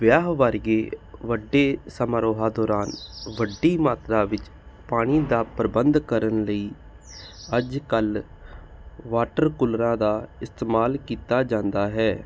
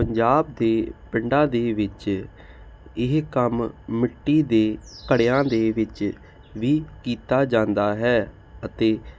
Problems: none marked